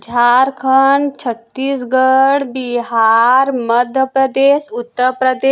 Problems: constant background noise